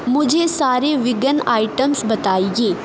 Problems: constant background noise